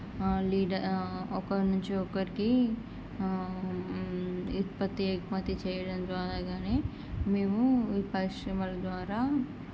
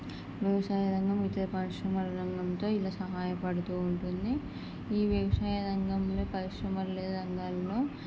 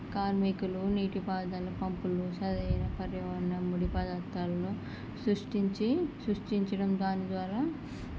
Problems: low volume